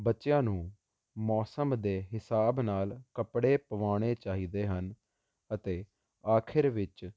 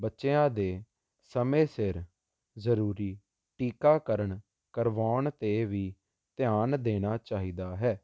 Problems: constant background noise